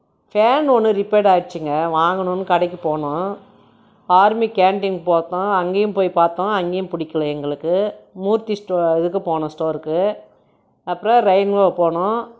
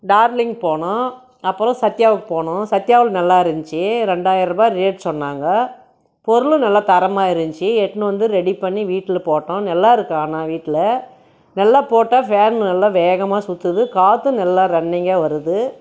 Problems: none marked